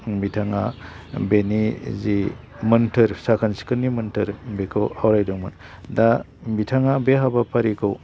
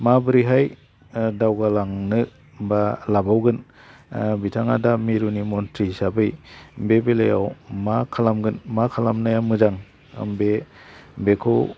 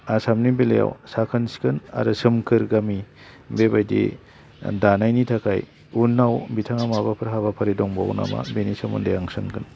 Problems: low volume